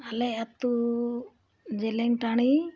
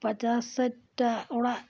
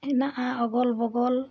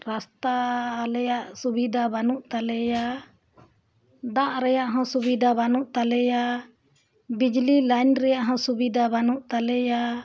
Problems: none marked